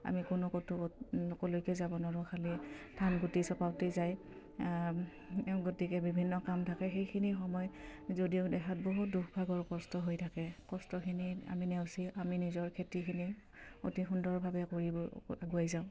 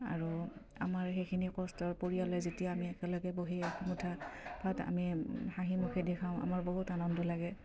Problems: none marked